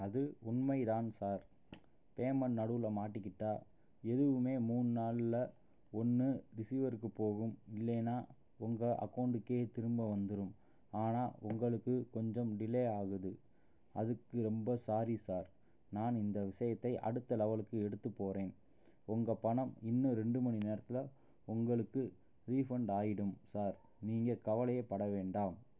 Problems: low volume